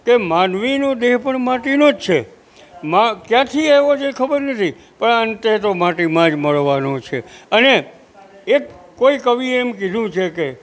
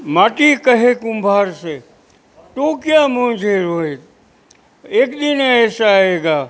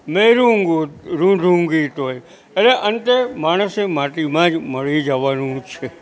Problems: constant background noise